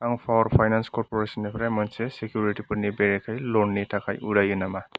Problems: background sounds at intervals